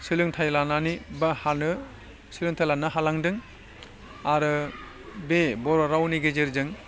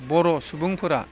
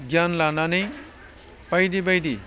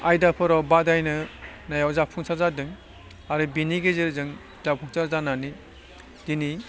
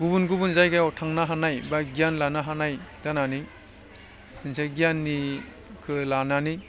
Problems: constant background noise